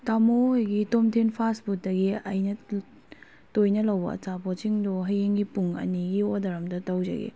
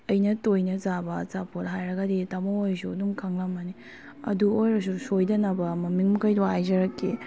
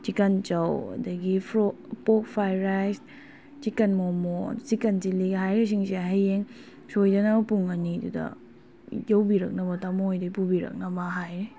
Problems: background sounds at intervals